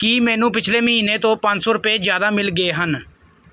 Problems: background sounds at intervals